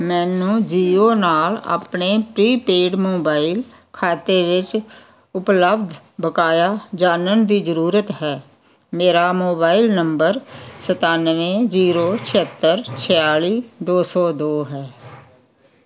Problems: none marked